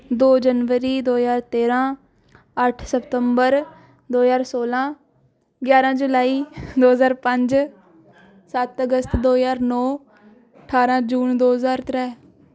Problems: none marked